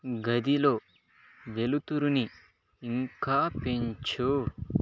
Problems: background sounds at intervals, low volume